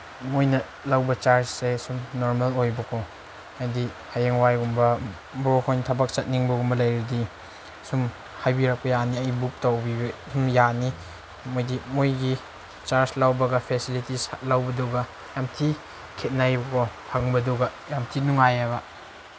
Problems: constant background noise